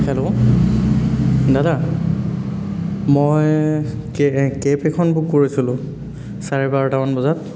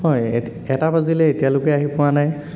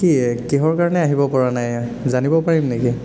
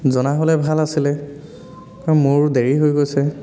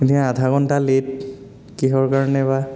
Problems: constant background noise, background conversations at intervals